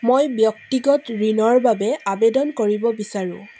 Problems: constant background noise